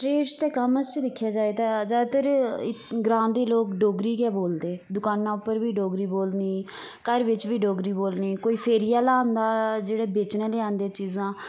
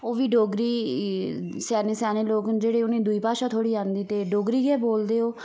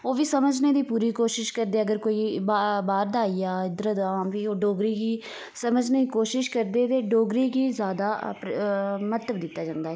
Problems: background sounds at intervals